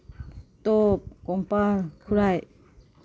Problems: none marked